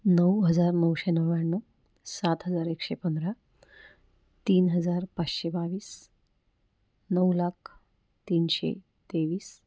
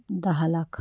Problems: none marked